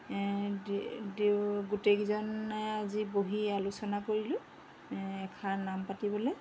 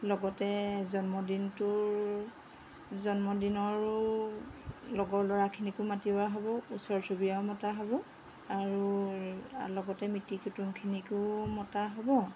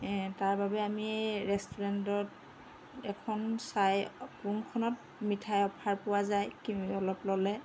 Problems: background sounds at intervals